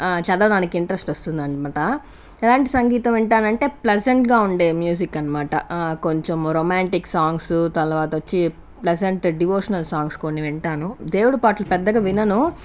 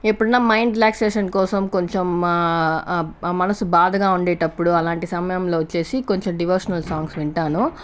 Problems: constant background noise